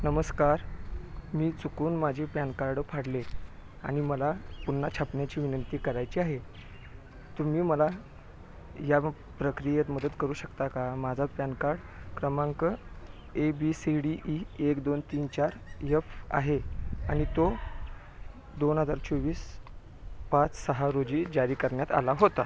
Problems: background sounds at intervals, background conversations at intervals